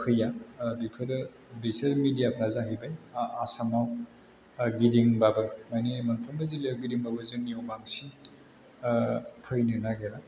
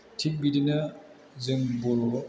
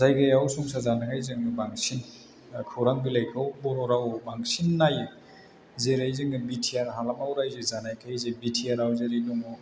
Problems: low volume